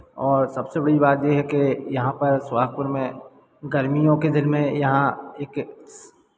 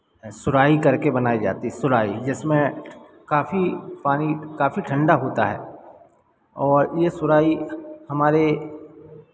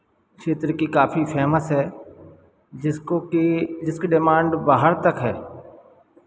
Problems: none marked